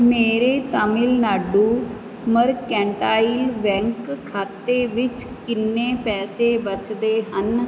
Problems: none marked